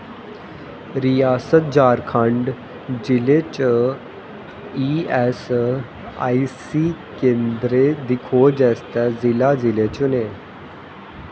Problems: constant background noise, echo